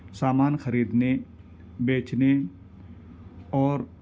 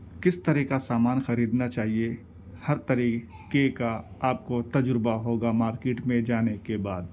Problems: none marked